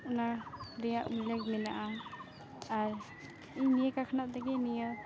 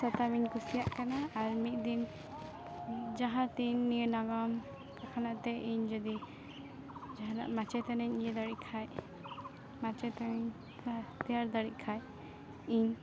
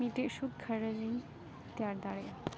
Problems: constant background noise, background conversations at intervals